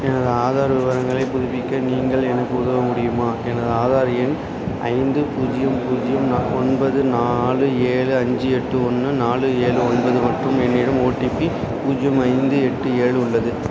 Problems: constant background noise